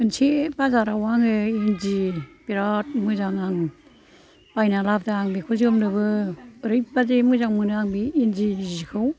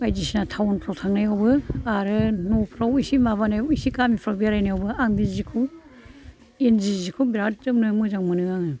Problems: background sounds at intervals, background conversations at intervals